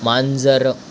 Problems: constant background noise